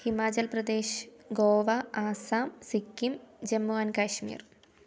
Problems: low volume